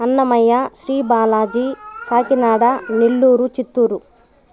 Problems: background conversations at intervals